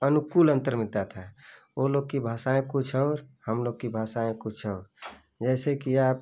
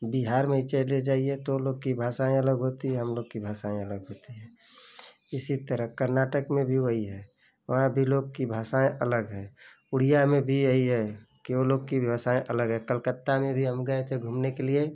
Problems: constant background noise